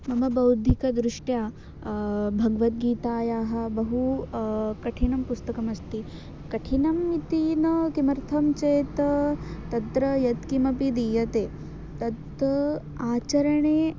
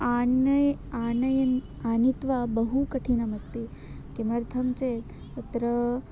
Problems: constant background noise